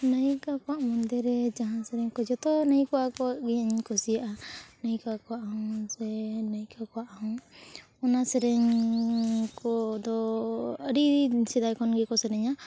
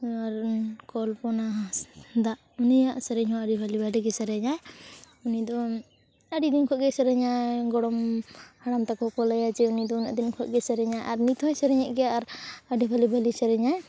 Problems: continuous background conversations